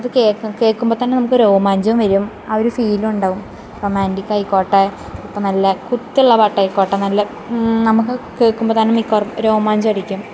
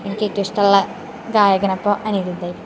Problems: background sounds at intervals